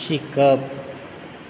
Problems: constant background noise